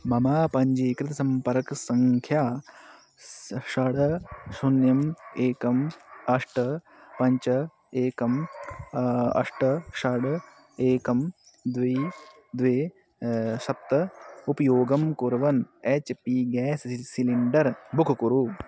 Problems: constant background noise